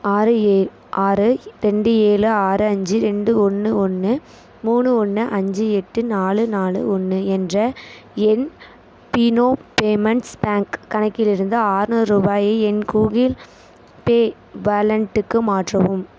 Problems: constant background noise